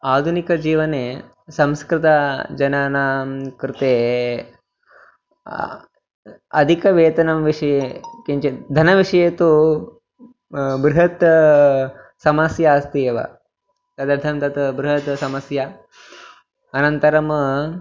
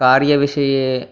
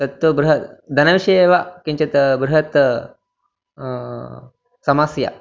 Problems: background sounds at intervals